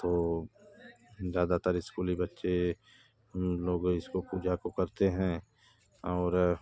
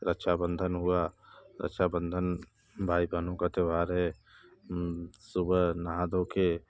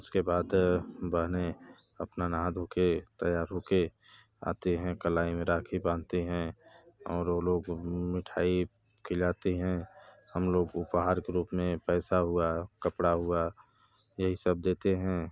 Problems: none marked